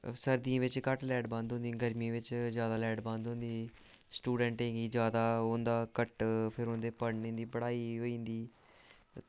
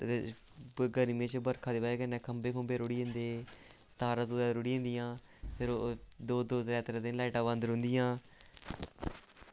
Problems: none marked